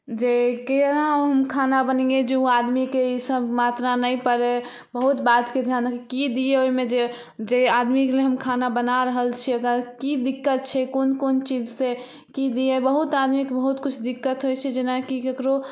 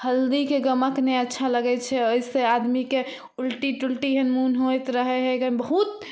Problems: none marked